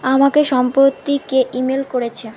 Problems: constant background noise